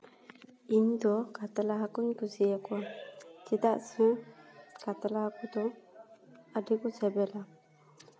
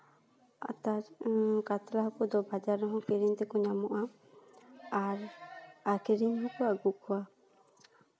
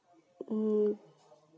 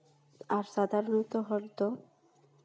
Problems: background sounds at intervals, background conversations at intervals